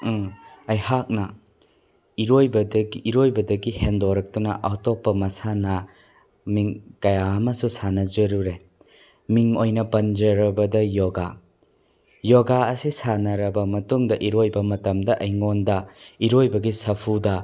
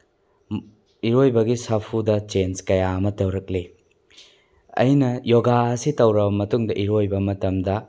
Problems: background sounds at intervals